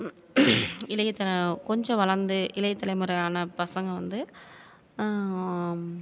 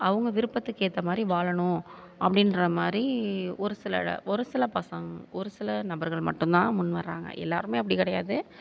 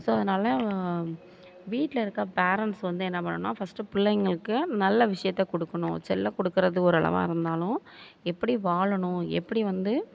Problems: none marked